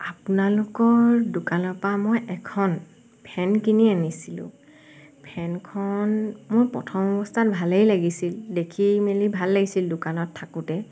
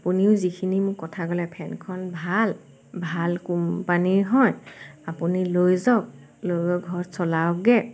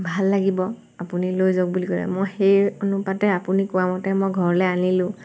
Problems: constant background noise